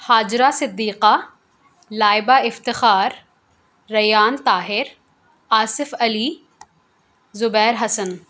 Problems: none marked